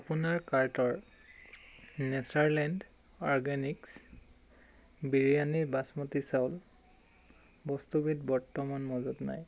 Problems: none marked